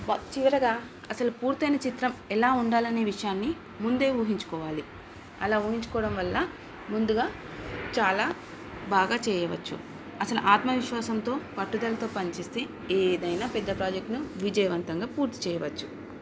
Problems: background sounds at intervals